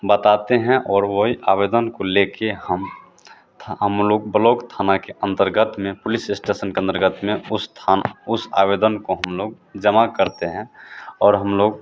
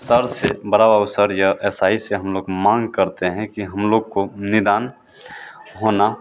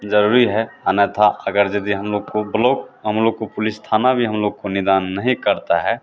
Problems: constant background noise